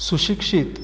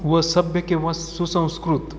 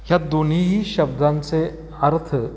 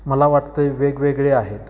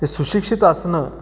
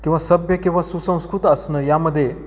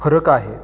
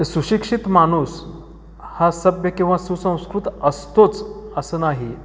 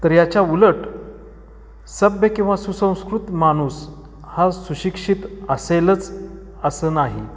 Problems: background sounds at intervals, echo